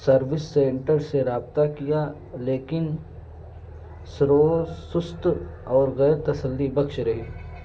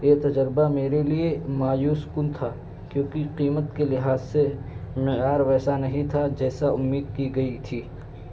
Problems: constant background noise